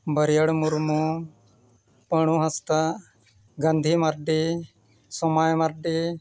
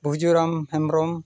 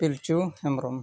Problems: background conversations at intervals